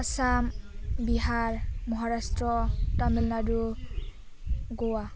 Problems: none marked